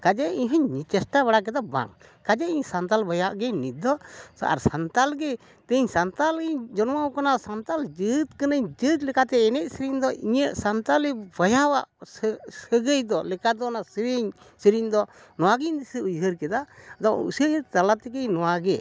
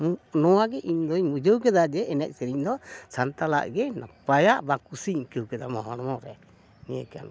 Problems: none marked